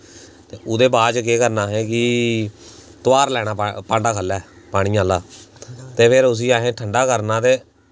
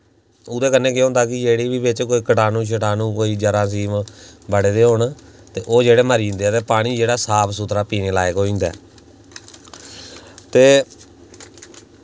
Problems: none marked